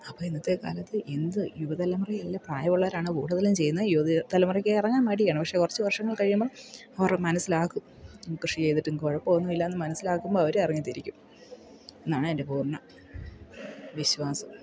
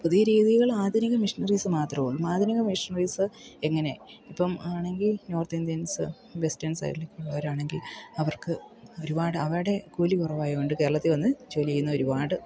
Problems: background sounds at intervals